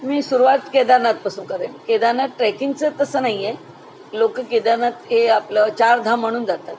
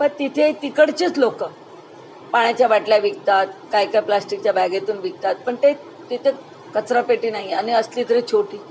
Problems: none marked